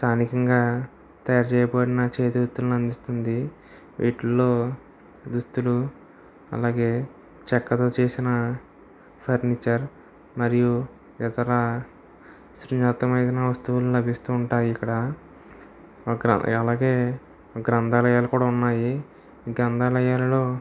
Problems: none marked